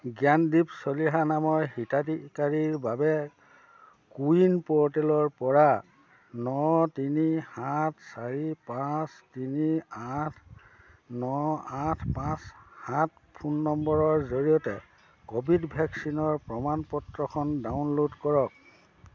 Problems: none marked